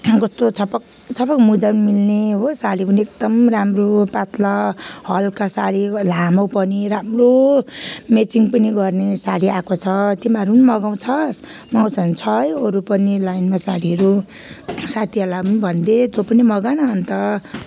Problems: background sounds at intervals